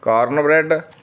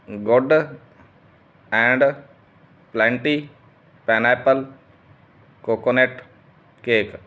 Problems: background sounds at intervals